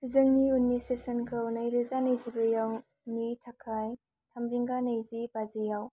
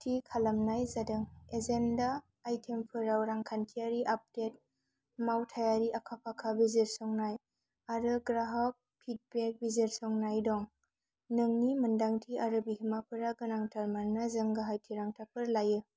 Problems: none marked